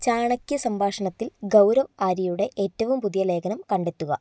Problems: none marked